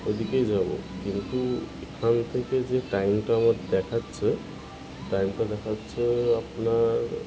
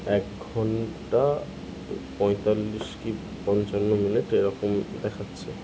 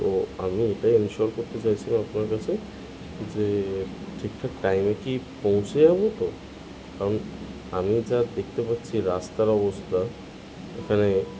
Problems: constant background noise